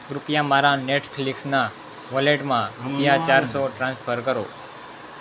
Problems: constant background noise